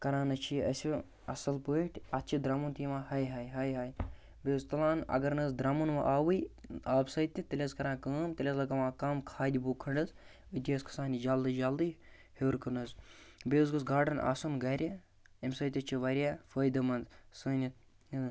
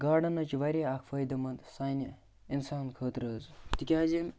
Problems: background sounds at intervals